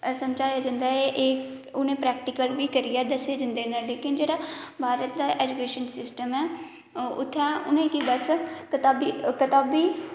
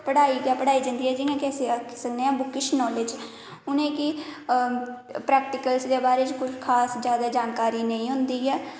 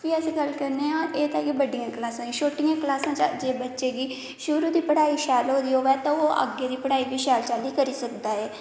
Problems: background sounds at intervals, echo